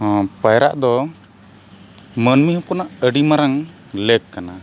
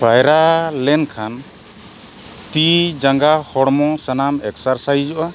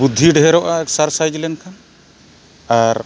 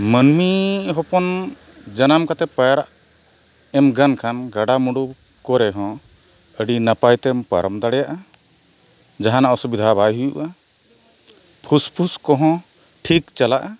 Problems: constant background noise